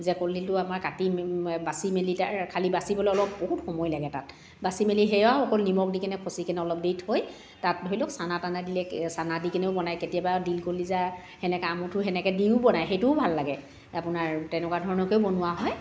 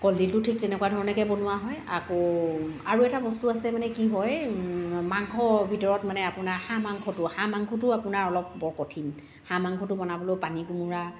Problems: background sounds at intervals, background conversations at intervals, echo